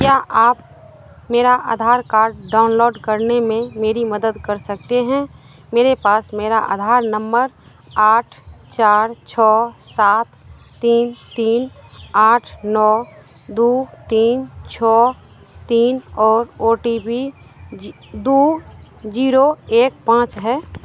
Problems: constant background noise